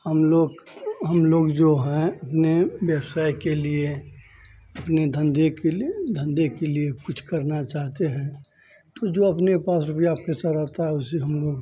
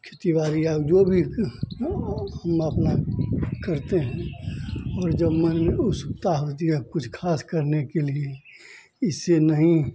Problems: constant background noise